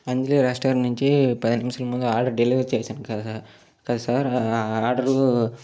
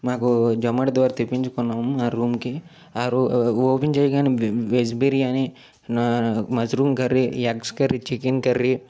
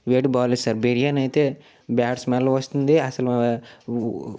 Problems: background sounds at intervals